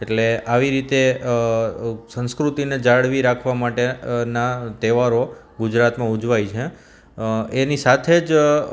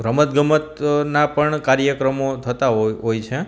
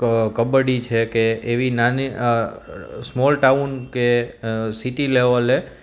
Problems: none marked